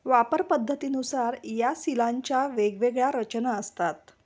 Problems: background sounds at intervals